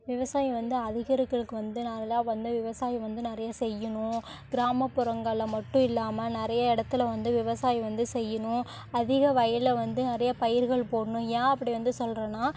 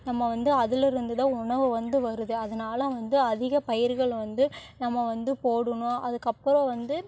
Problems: background conversations at intervals